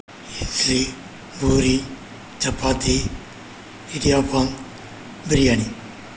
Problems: constant background noise